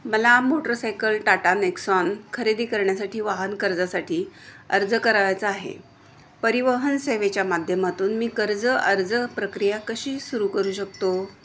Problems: constant background noise, background conversations at intervals